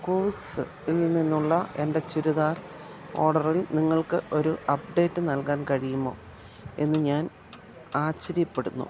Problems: constant background noise